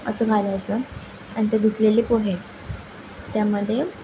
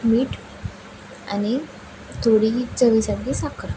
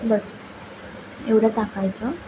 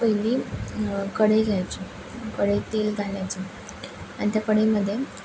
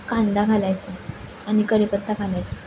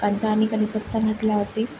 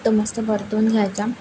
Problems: constant background noise, background conversations at intervals